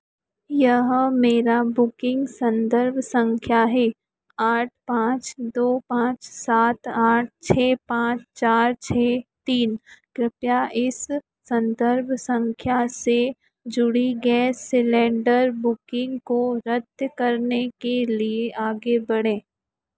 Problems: none marked